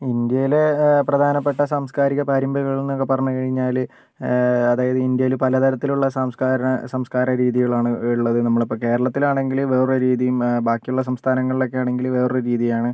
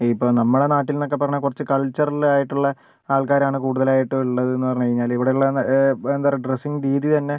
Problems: none marked